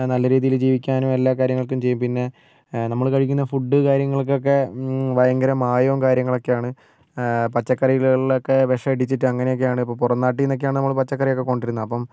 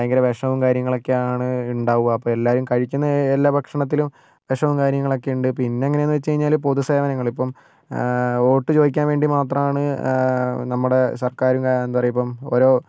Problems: none marked